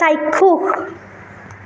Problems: constant background noise